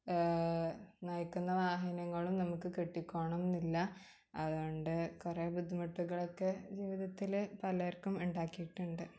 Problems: background sounds at intervals